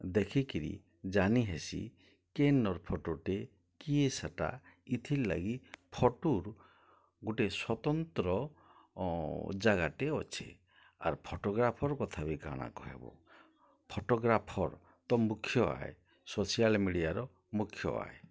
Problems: low volume